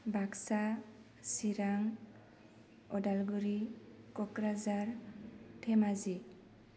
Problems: constant background noise